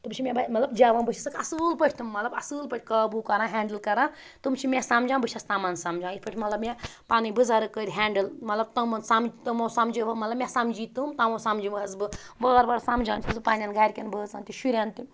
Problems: background sounds at intervals